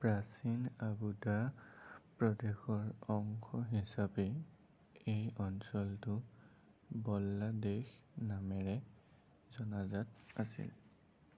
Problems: constant background noise, low volume